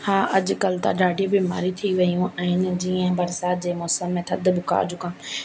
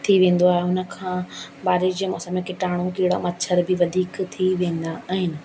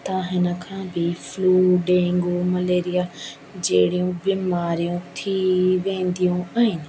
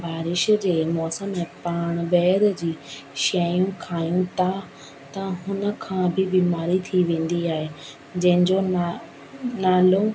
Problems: constant background noise